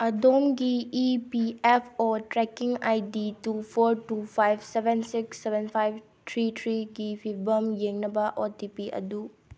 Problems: none marked